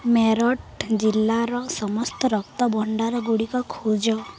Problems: none marked